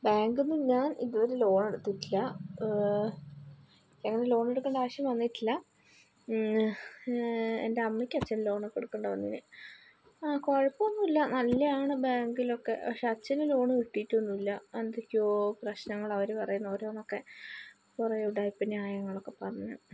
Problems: low volume